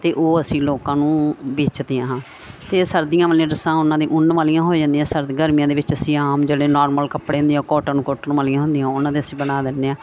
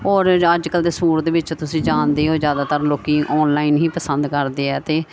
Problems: none marked